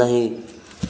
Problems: background sounds at intervals